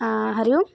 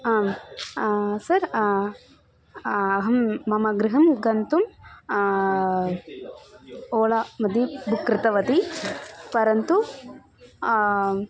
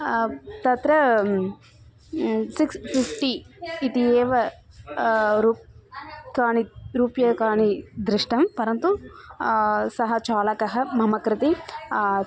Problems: constant background noise, continuous background conversations